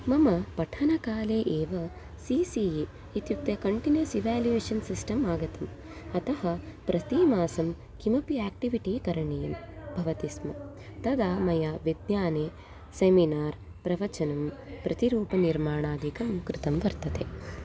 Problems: background sounds at intervals